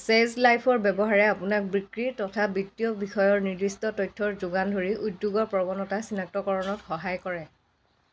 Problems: background sounds at intervals, background conversations at intervals